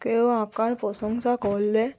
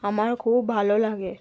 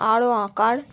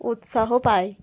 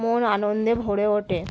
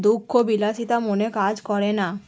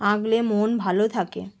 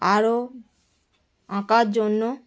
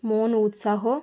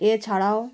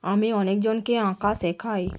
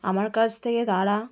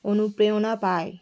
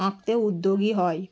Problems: constant background noise